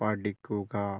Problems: low volume